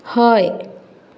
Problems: background sounds at intervals